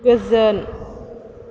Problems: none marked